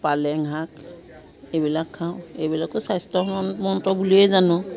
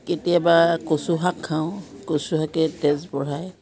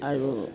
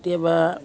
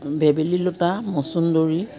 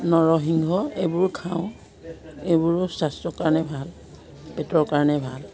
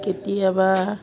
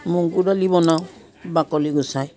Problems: background sounds at intervals, background conversations at intervals